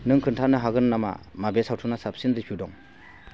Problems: constant background noise